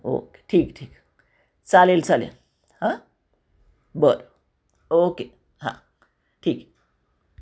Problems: constant background noise, echo